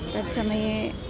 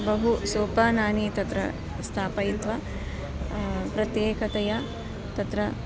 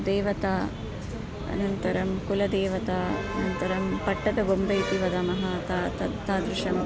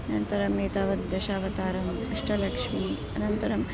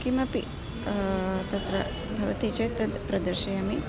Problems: none marked